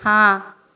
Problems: none marked